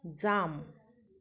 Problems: none marked